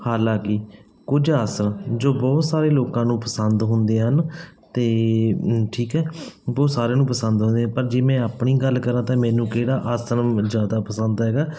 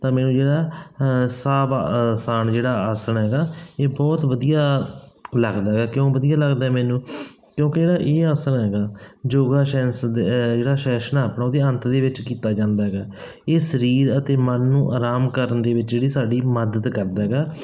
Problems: background sounds at intervals